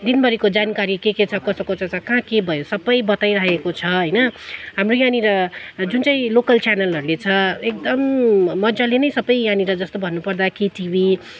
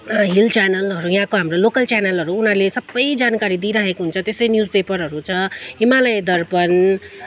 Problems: none marked